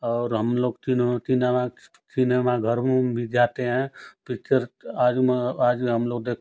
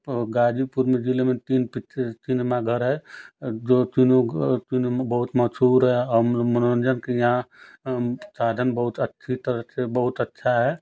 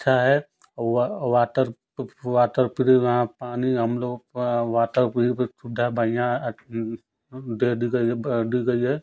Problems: constant background noise